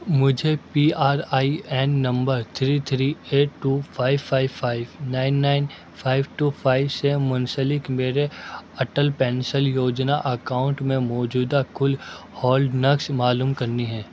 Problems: constant background noise, low volume